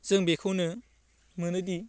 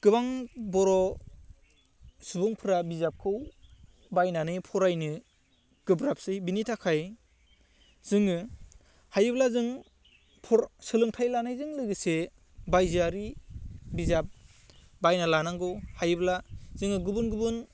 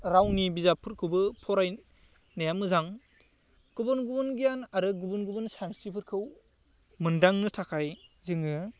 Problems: none marked